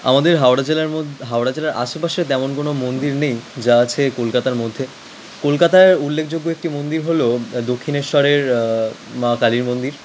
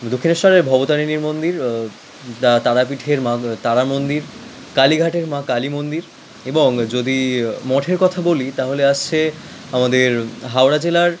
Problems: constant background noise